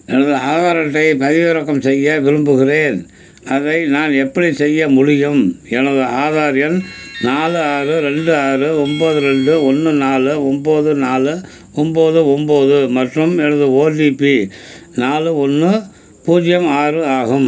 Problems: background sounds at intervals